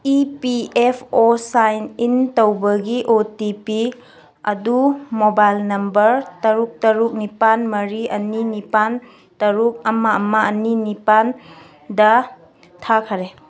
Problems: background conversations at intervals